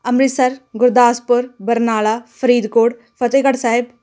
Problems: none marked